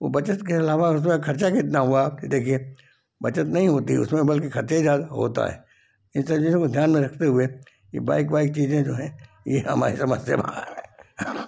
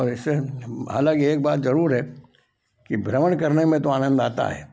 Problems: constant background noise